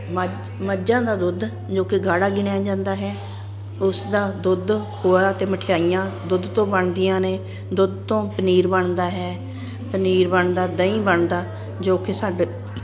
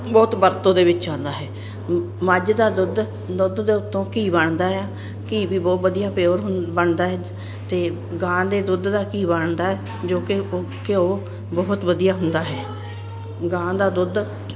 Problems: none marked